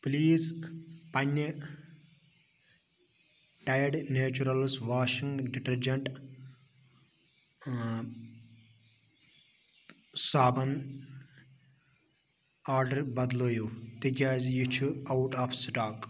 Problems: none marked